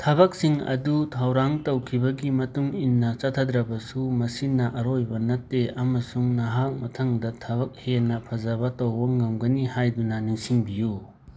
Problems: background sounds at intervals